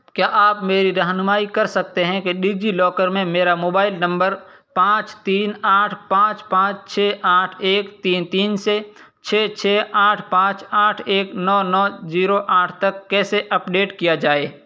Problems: constant background noise